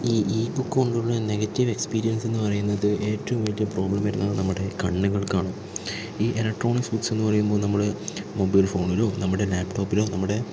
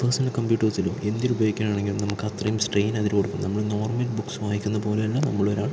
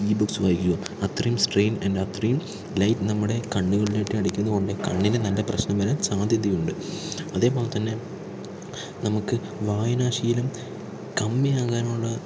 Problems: constant background noise, low volume